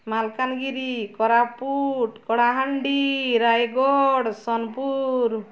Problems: none marked